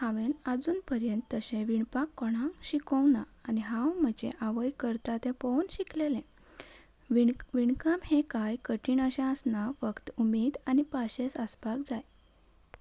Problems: background sounds at intervals